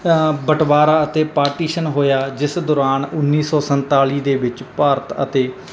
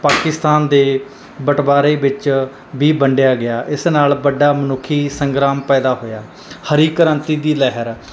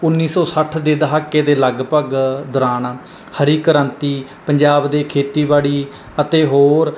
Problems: none marked